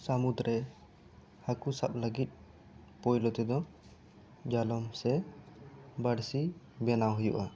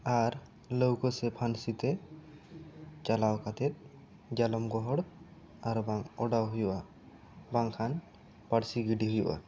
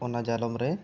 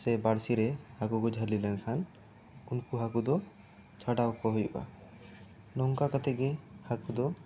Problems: none marked